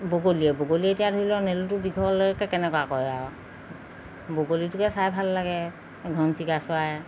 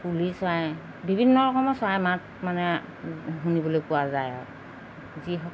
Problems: constant background noise